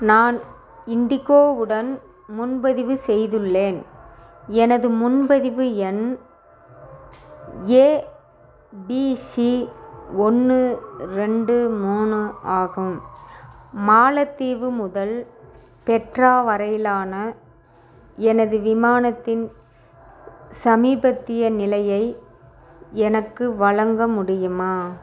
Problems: constant background noise